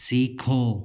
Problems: constant background noise